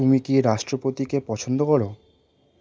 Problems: none marked